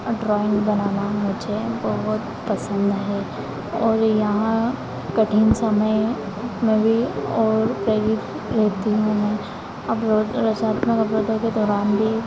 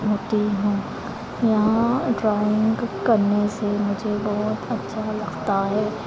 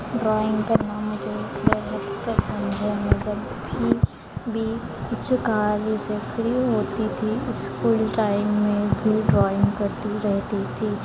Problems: constant background noise